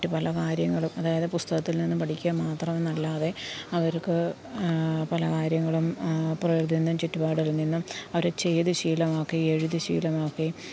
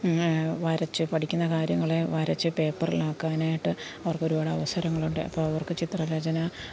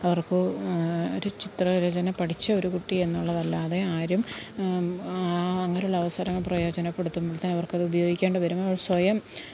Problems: background sounds at intervals, low volume